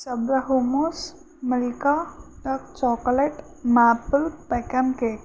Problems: constant background noise